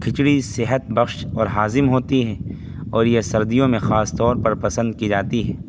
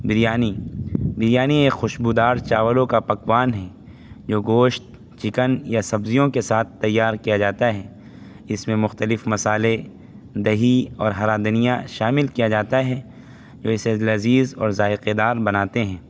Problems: constant background noise